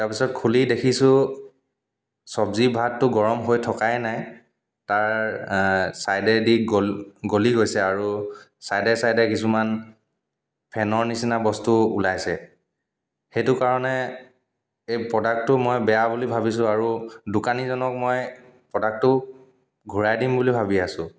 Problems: background sounds at intervals, echo